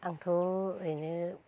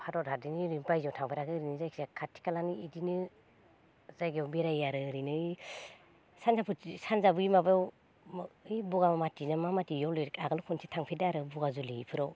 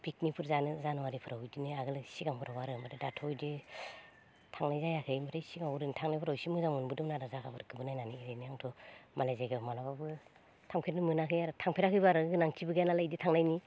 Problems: low volume